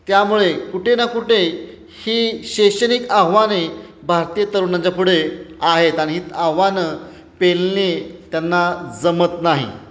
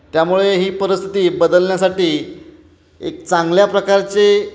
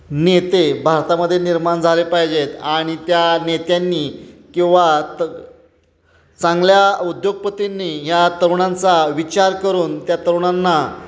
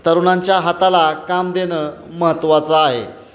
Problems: constant background noise, continuous background conversations